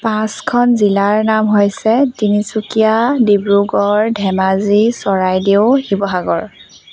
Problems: constant background noise